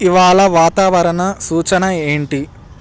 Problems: none marked